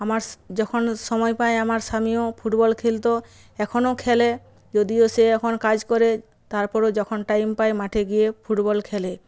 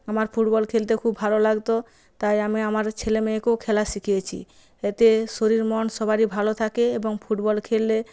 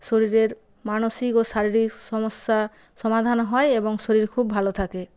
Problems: background sounds at intervals